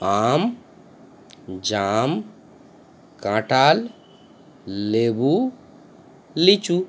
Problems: none marked